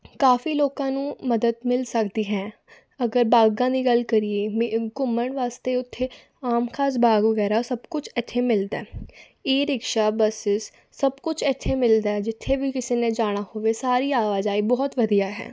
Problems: background sounds at intervals